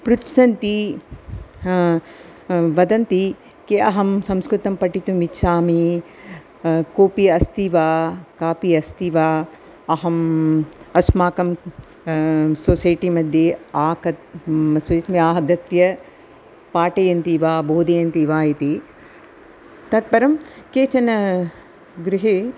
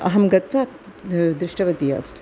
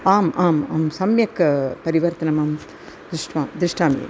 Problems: none marked